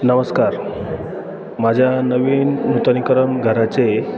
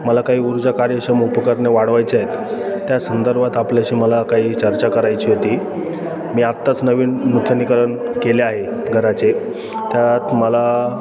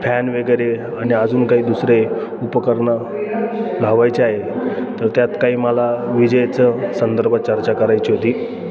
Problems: constant background noise, continuous background conversations